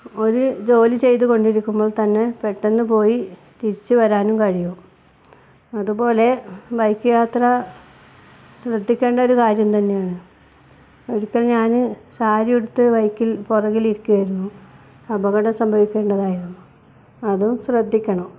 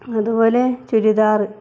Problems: none marked